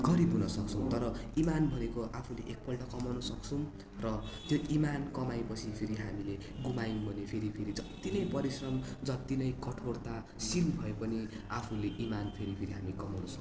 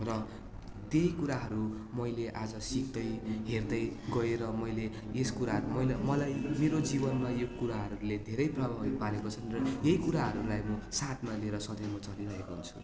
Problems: none marked